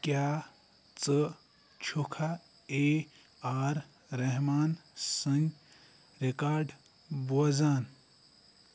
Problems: none marked